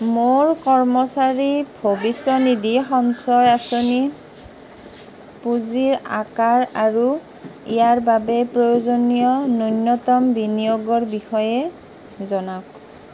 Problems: background sounds at intervals, background conversations at intervals